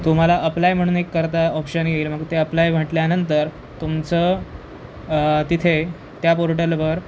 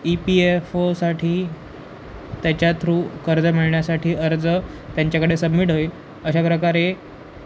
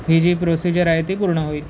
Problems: none marked